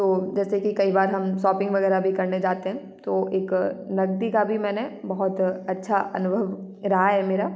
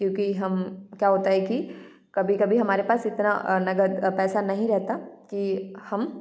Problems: none marked